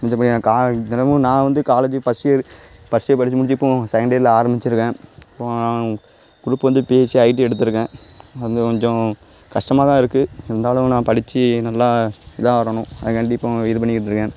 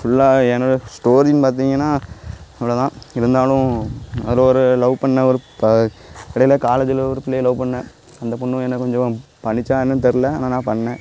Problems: background sounds at intervals